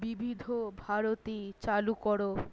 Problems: none marked